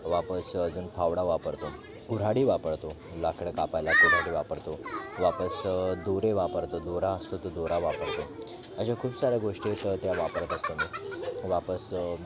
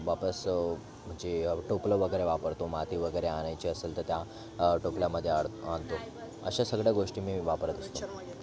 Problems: background sounds at intervals, continuous background conversations